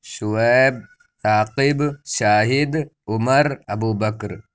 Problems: constant background noise